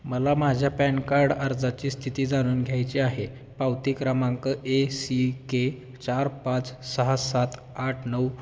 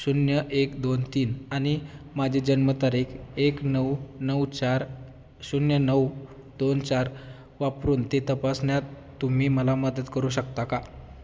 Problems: none marked